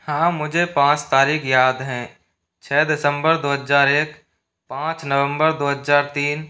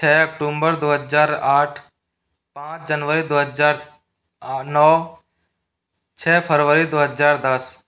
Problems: none marked